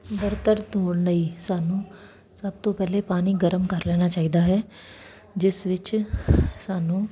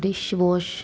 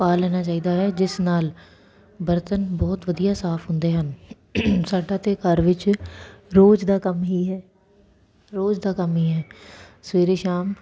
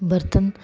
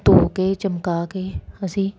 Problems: background sounds at intervals